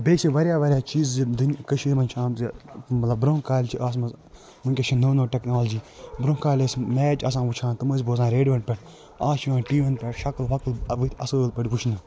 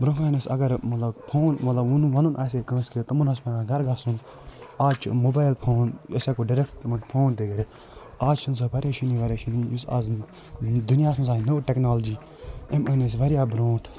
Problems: constant background noise